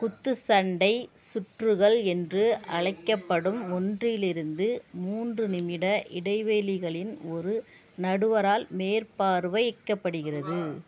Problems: none marked